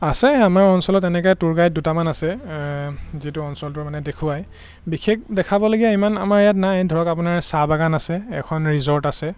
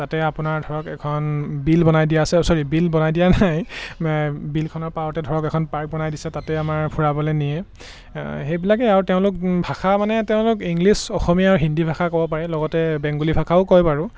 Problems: background sounds at intervals